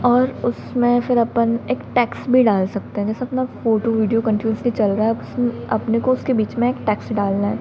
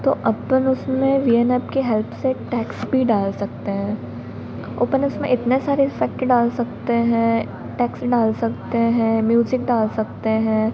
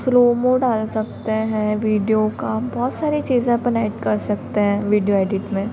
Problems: constant background noise